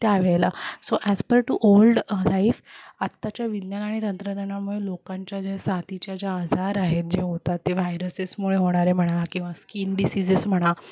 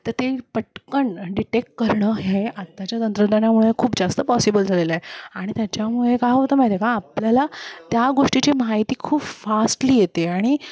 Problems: constant background noise, continuous background conversations